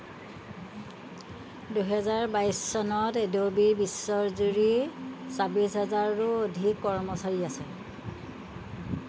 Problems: background sounds at intervals